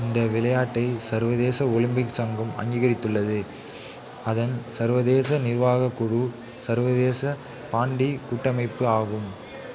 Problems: continuous background conversations